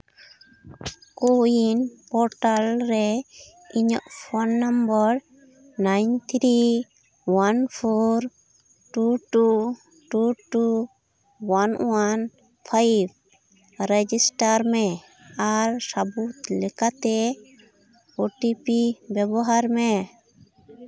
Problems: background conversations at intervals